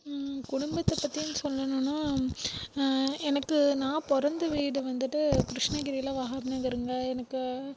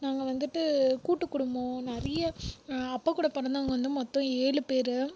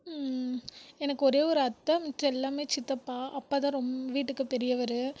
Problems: background sounds at intervals